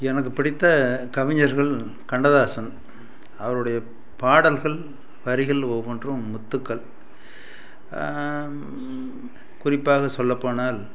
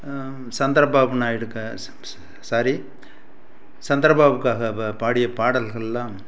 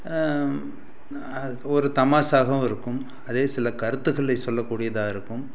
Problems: constant background noise